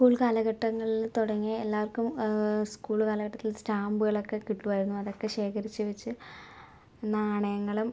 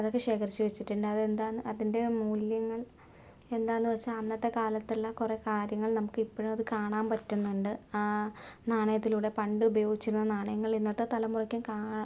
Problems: none marked